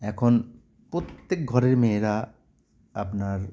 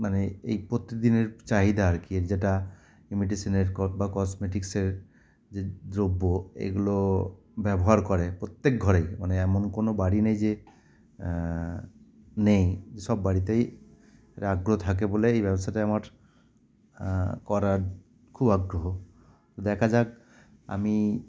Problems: none marked